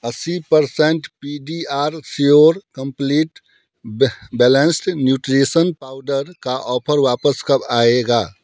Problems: background sounds at intervals